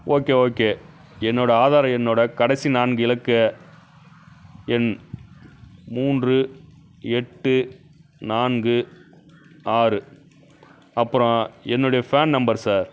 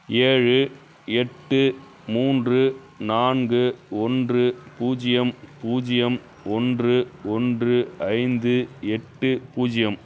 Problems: constant background noise